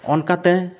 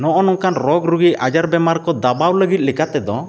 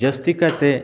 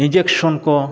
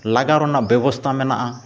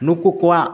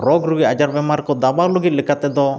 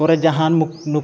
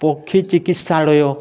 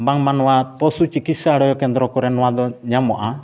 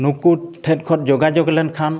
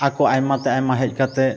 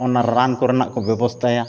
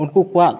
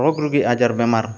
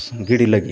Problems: background sounds at intervals, continuous background conversations